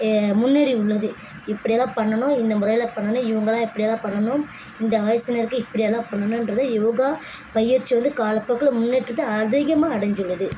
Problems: constant background noise